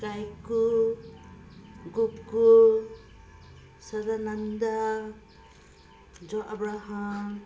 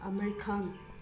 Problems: constant background noise